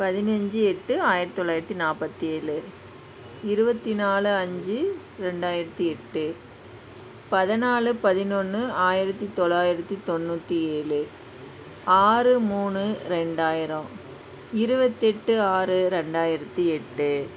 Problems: none marked